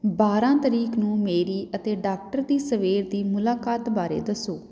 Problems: background sounds at intervals